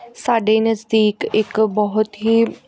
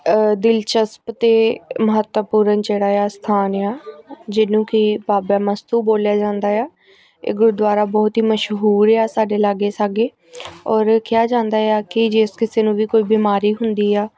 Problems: background sounds at intervals, background conversations at intervals